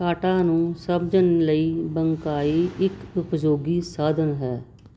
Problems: background sounds at intervals